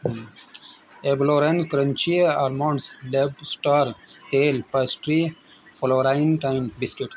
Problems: constant background noise